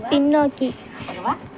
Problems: background sounds at intervals